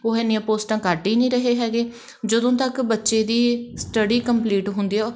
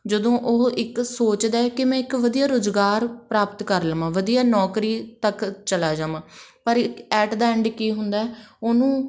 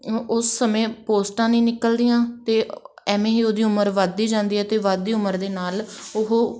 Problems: background sounds at intervals, background conversations at intervals